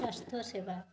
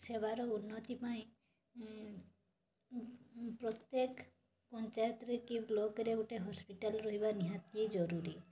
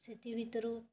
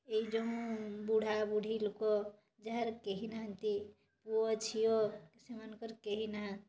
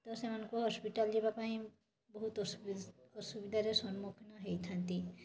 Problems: constant background noise, background conversations at intervals